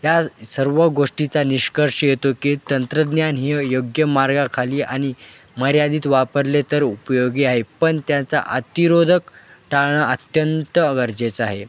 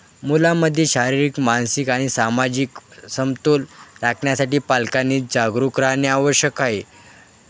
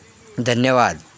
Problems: constant background noise, background conversations at intervals